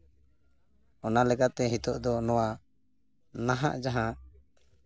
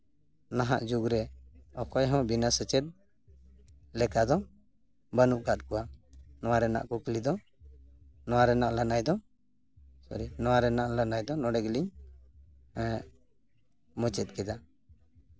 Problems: none marked